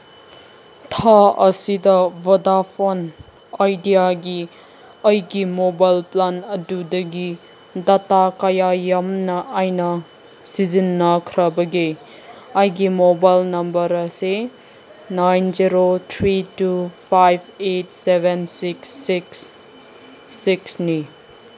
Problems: background sounds at intervals